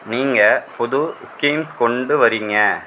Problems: constant background noise